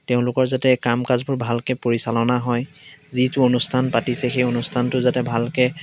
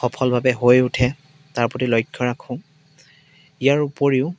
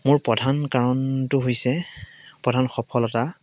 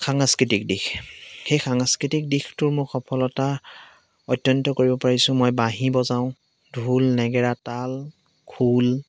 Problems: none marked